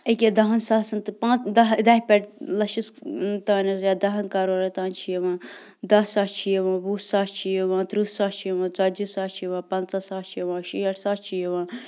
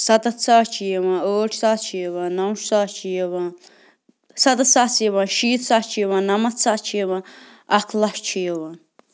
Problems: constant background noise